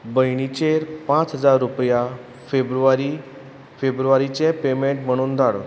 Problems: none marked